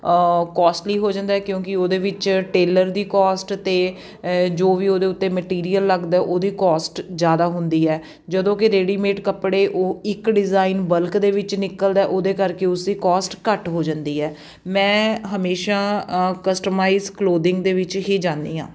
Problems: none marked